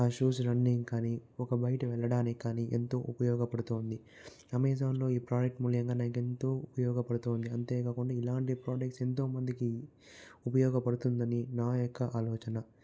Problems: background sounds at intervals